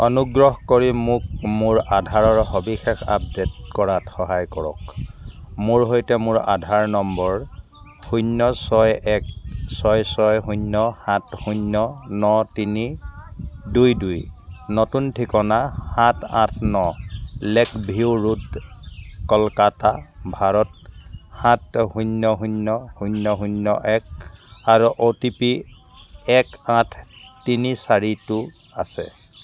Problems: background sounds at intervals